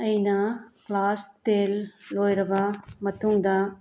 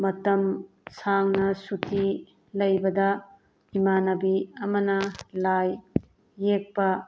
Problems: background sounds at intervals